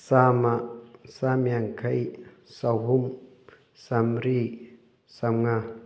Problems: none marked